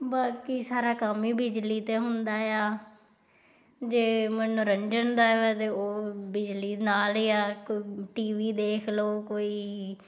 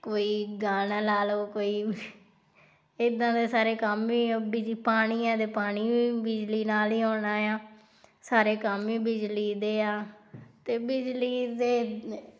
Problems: background sounds at intervals